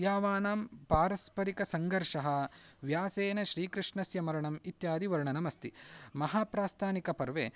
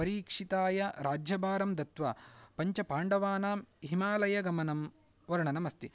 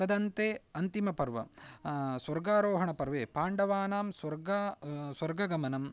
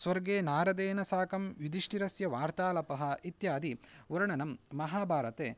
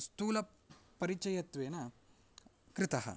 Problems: none marked